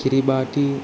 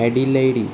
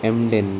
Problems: constant background noise